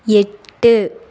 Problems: none marked